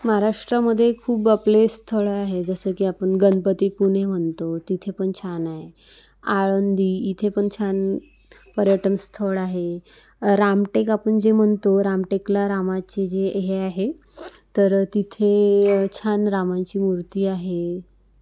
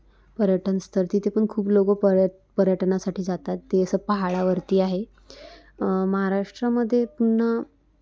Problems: none marked